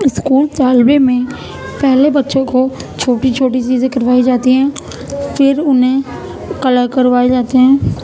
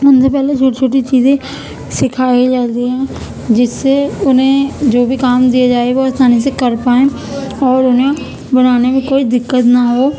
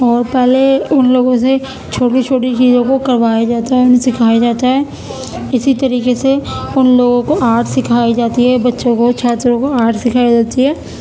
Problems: constant background noise